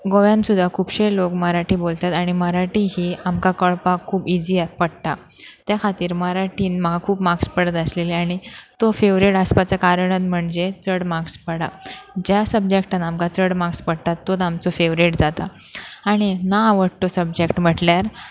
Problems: background sounds at intervals